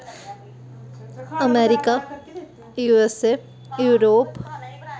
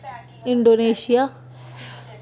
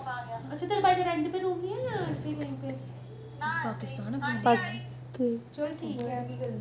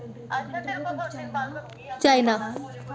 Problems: background sounds at intervals